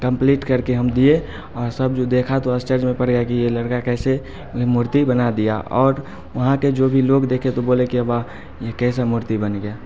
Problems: none marked